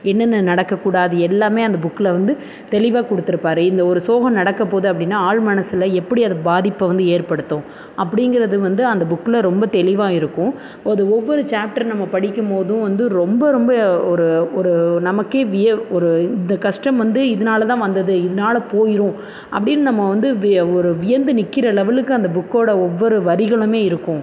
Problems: constant background noise